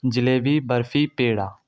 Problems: none marked